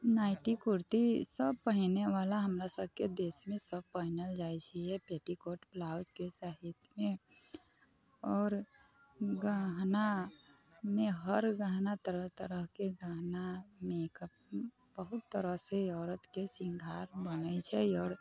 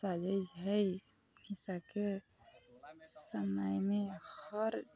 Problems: constant background noise, continuous background conversations